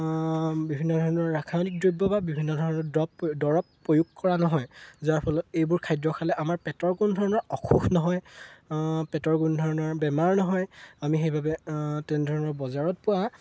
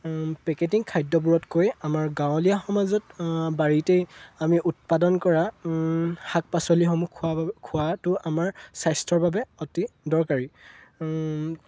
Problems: none marked